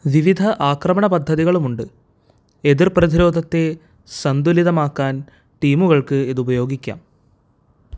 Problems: none marked